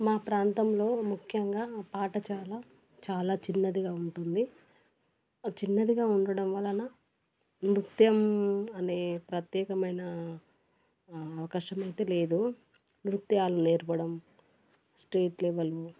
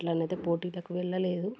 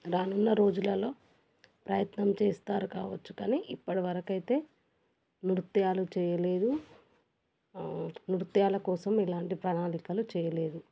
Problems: none marked